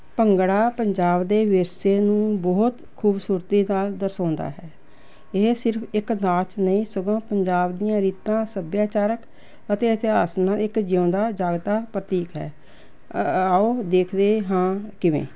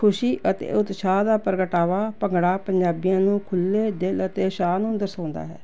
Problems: none marked